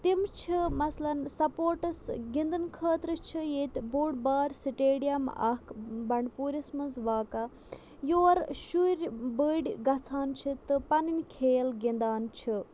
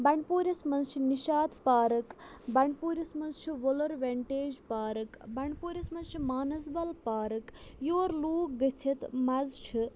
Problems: background sounds at intervals